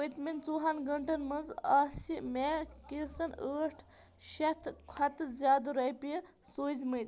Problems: background sounds at intervals